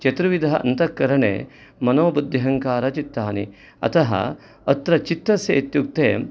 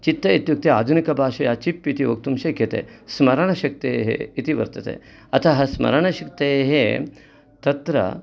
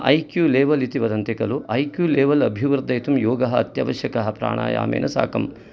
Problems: background sounds at intervals